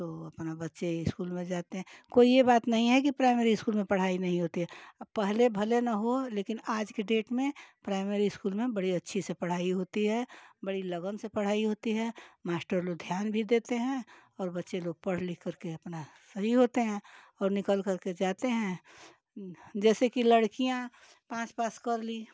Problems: none marked